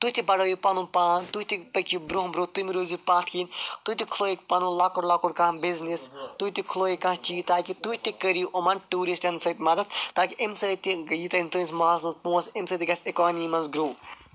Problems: none marked